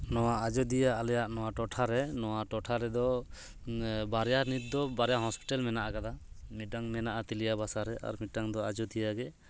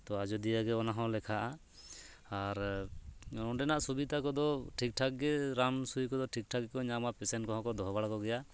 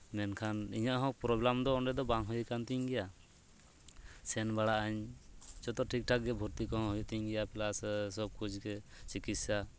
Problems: none marked